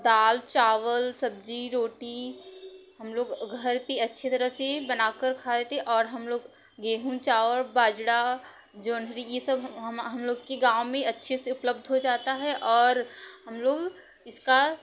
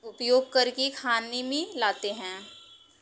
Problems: background sounds at intervals